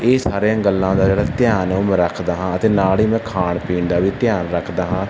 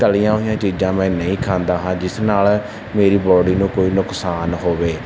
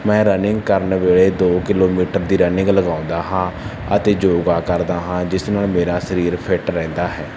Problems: none marked